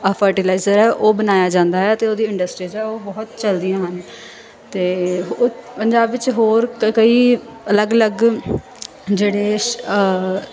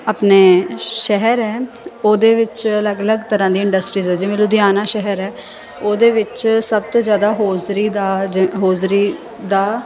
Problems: constant background noise